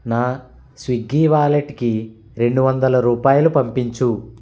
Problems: constant background noise